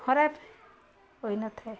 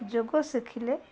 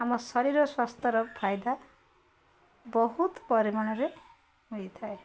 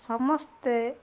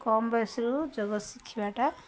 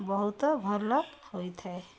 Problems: constant background noise, continuous background conversations